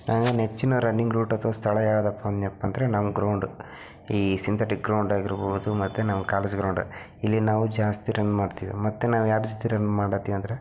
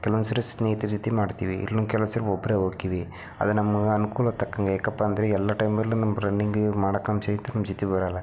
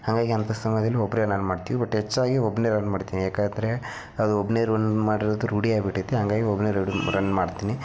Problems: background sounds at intervals